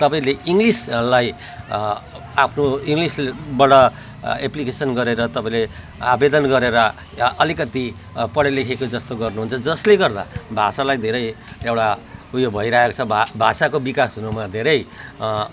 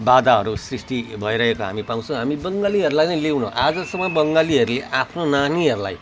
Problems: background sounds at intervals